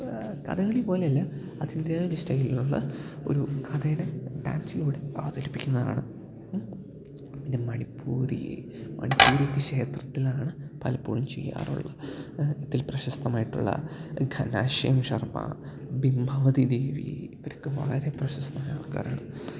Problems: background sounds at intervals, low volume